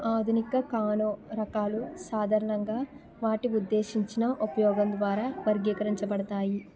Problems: continuous background conversations